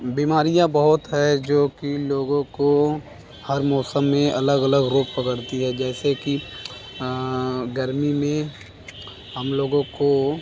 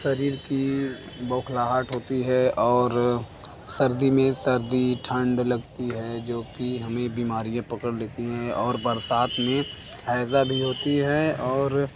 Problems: constant background noise, background conversations at intervals